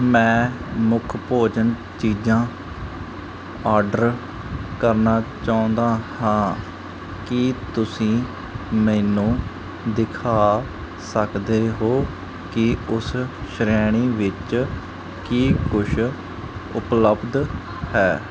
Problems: background sounds at intervals